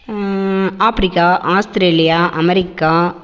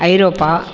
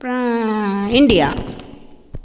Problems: constant background noise